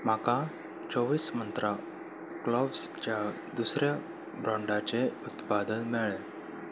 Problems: constant background noise